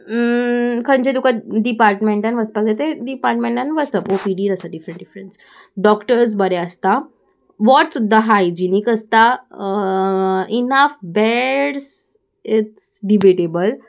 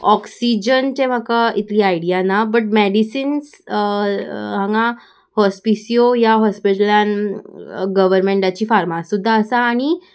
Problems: constant background noise